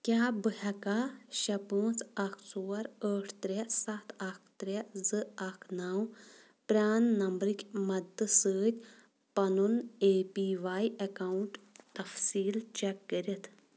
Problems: none marked